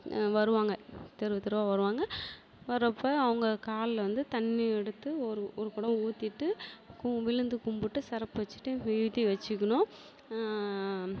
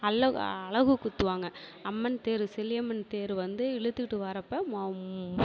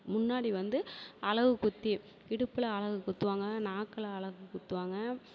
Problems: none marked